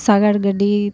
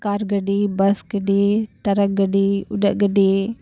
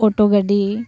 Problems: background sounds at intervals